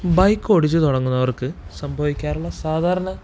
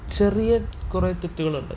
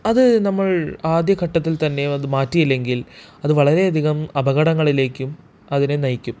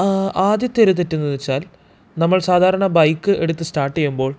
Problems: background sounds at intervals